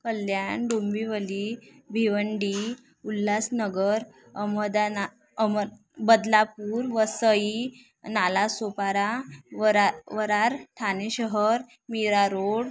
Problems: none marked